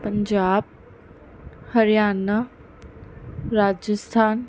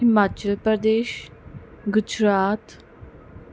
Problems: background sounds at intervals